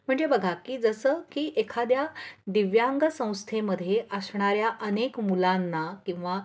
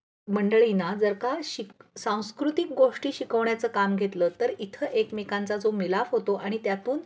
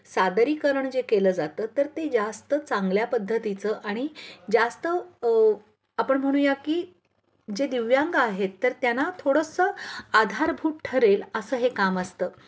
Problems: none marked